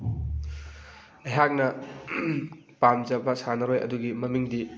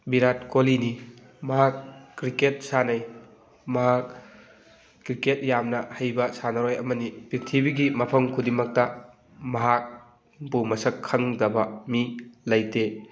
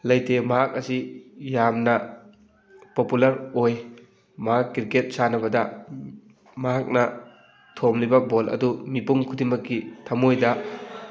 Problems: constant background noise